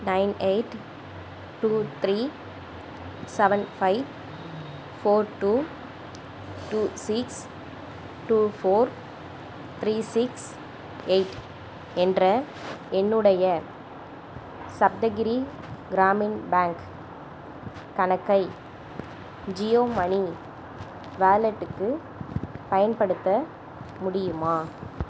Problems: background sounds at intervals